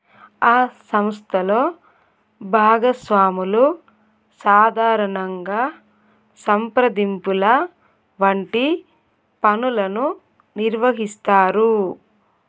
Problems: none marked